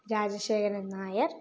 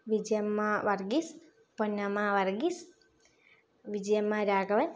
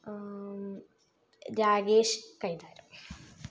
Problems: low volume